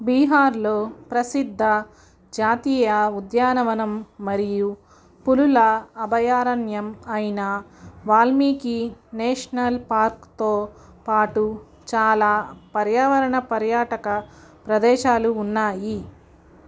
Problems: none marked